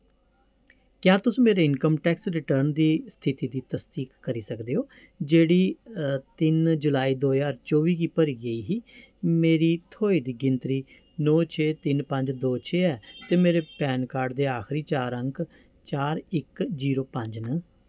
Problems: none marked